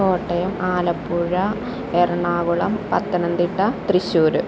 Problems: constant background noise